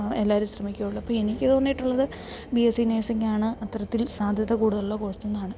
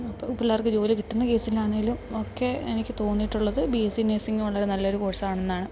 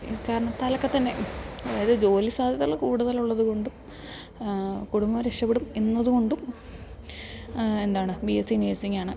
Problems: background sounds at intervals, background conversations at intervals